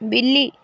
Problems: constant background noise